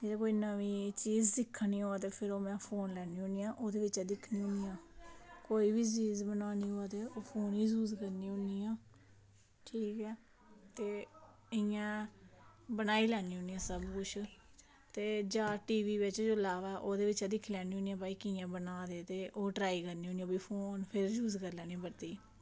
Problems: none marked